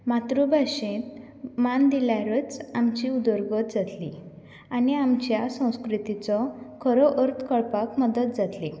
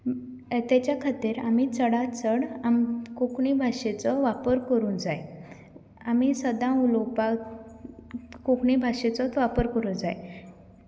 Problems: none marked